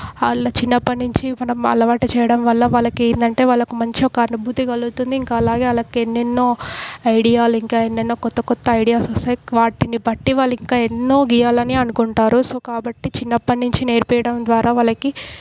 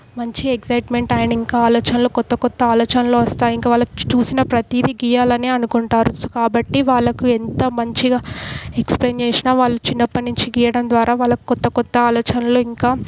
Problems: background sounds at intervals